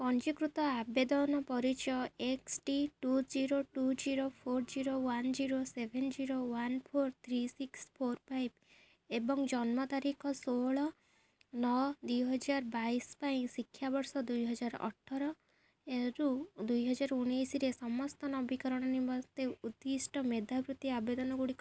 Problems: none marked